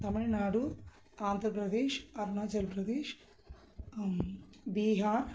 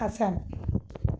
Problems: background sounds at intervals